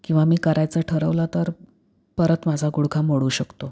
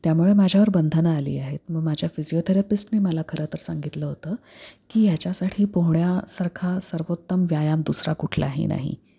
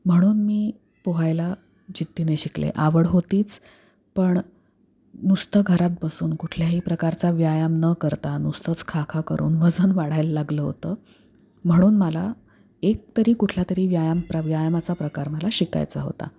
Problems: none marked